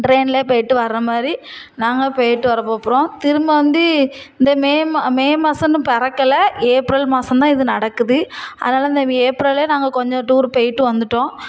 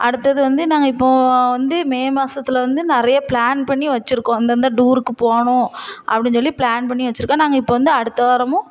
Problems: none marked